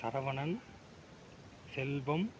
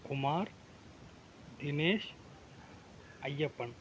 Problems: none marked